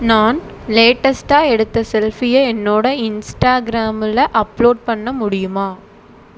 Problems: none marked